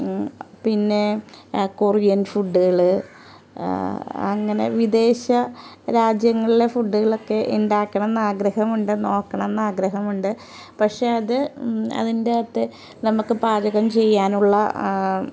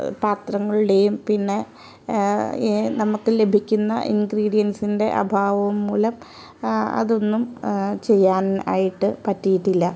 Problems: background sounds at intervals